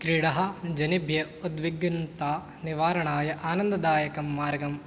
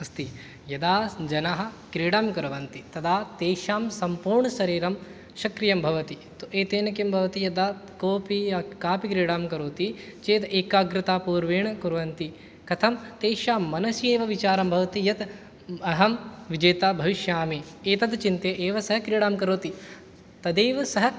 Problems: none marked